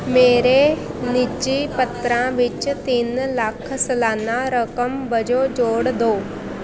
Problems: constant background noise